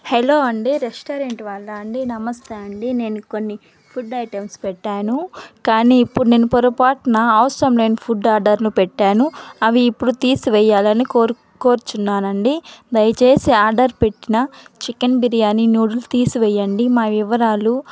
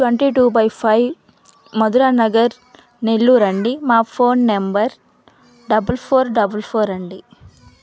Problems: background sounds at intervals, background conversations at intervals